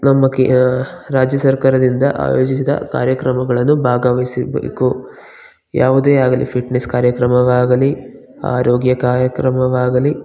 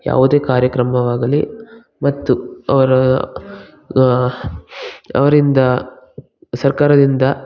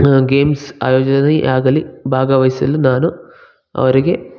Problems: background sounds at intervals